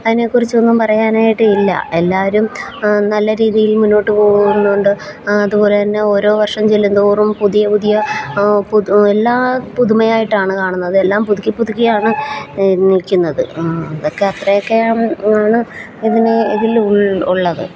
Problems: constant background noise